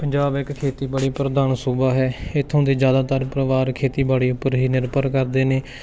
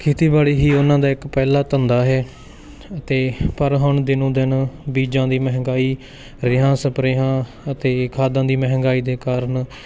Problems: constant background noise, background conversations at intervals